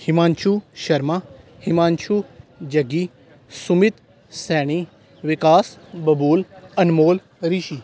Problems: background sounds at intervals